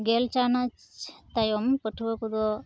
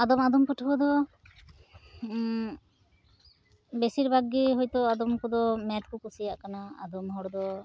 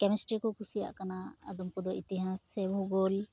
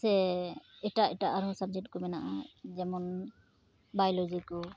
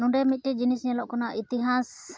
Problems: background sounds at intervals